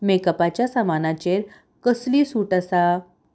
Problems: none marked